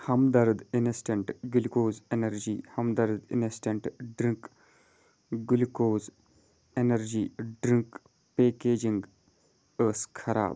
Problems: none marked